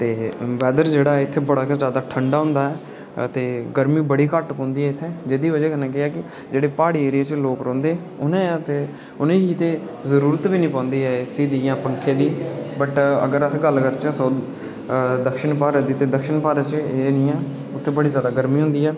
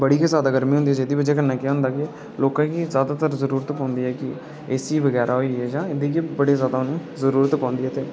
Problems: constant background noise